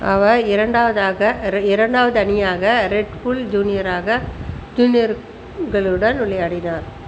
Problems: constant background noise